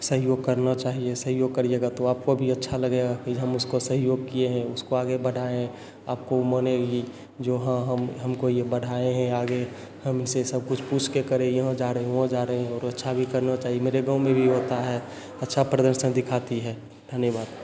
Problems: none marked